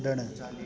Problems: constant background noise